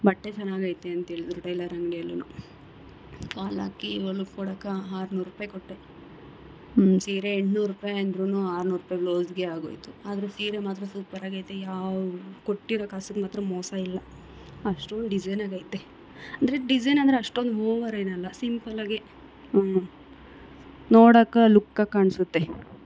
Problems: none marked